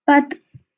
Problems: background sounds at intervals